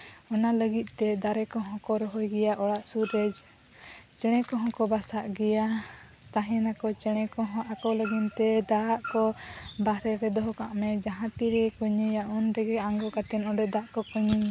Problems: constant background noise